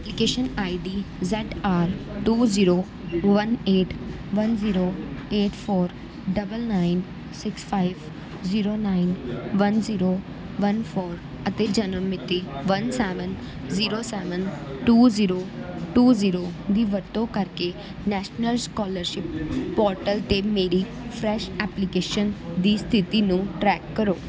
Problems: background conversations at intervals